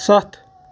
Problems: constant background noise